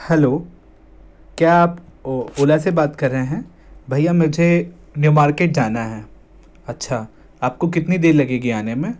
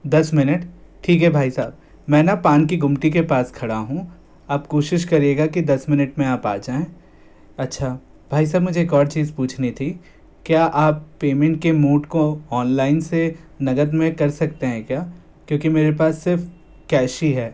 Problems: none marked